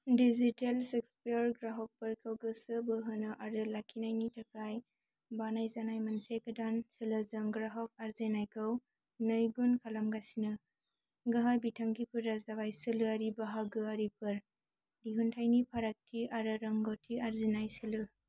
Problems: none marked